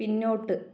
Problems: low volume